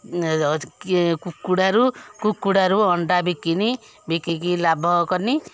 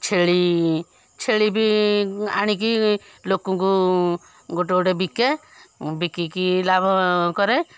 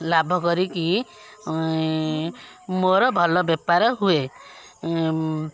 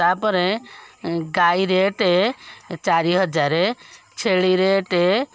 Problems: background sounds at intervals, background conversations at intervals